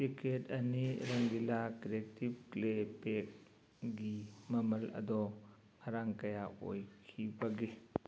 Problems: background sounds at intervals